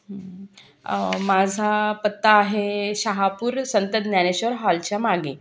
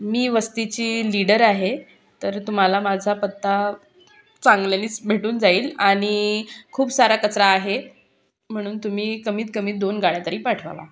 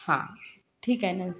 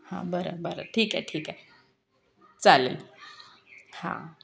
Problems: constant background noise, continuous background conversations